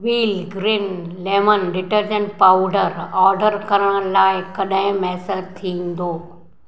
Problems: none marked